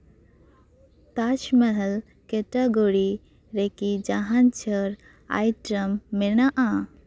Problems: none marked